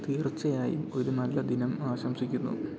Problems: low volume